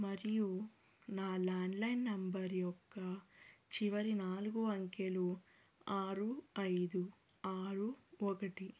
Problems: low volume